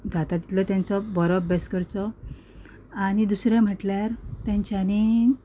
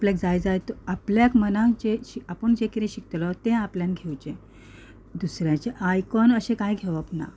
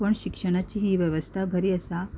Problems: background sounds at intervals